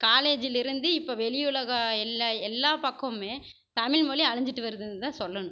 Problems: none marked